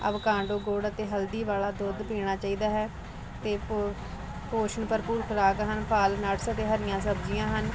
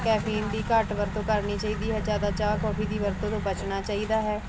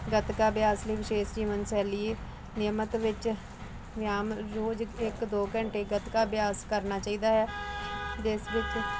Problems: none marked